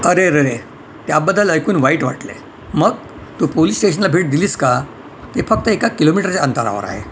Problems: none marked